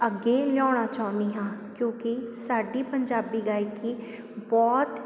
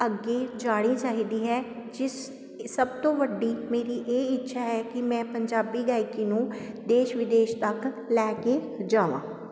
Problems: none marked